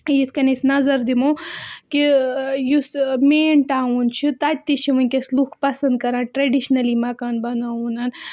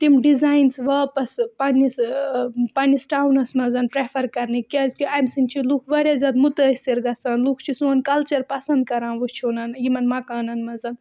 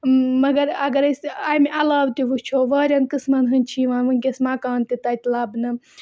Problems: background sounds at intervals